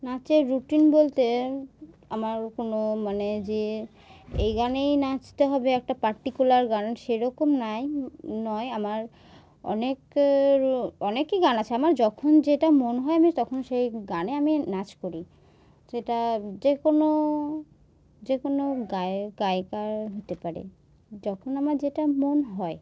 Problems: none marked